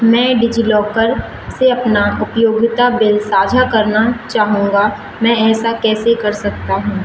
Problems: background sounds at intervals